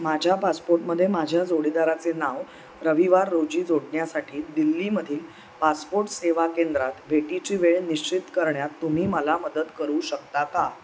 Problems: none marked